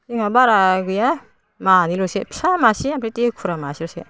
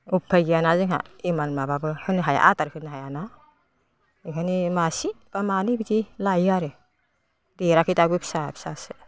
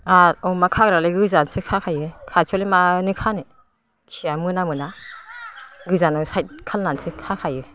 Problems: constant background noise